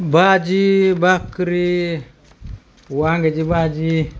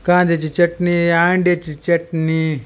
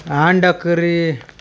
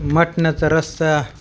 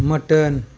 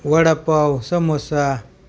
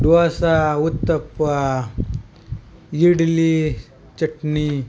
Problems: none marked